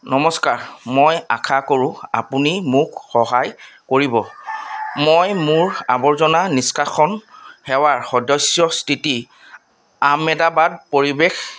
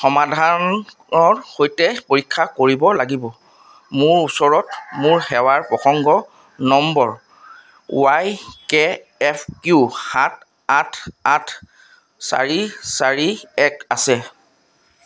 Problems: none marked